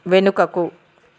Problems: constant background noise